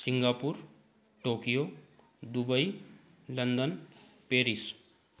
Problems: background sounds at intervals